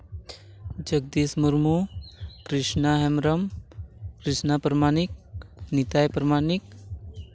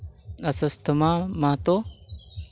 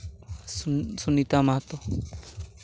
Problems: constant background noise